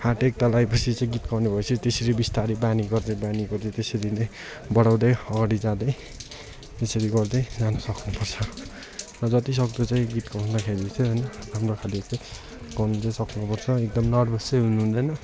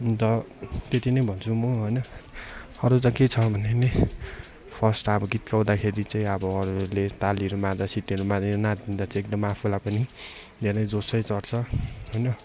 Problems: constant background noise, continuous background conversations